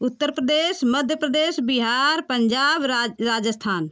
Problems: none marked